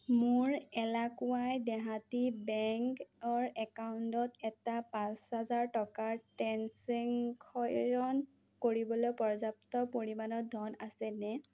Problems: none marked